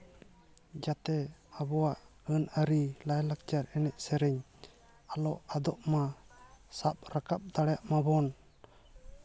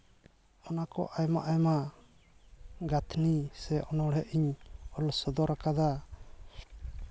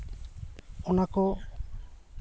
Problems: background sounds at intervals, continuous background conversations